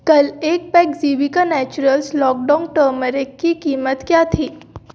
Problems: background sounds at intervals